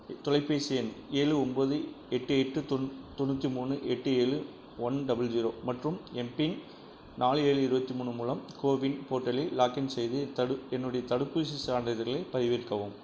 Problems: constant background noise